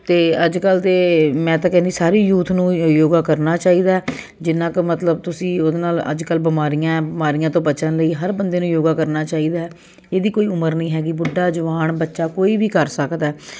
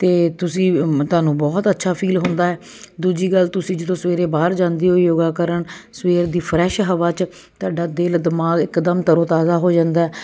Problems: constant background noise